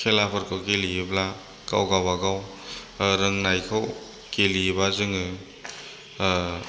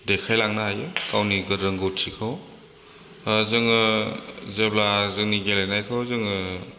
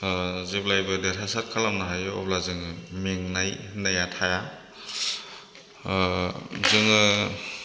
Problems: none marked